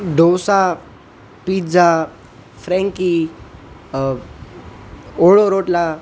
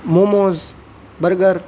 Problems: none marked